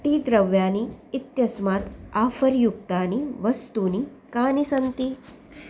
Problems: constant background noise